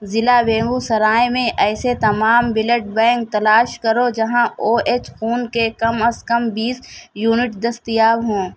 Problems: none marked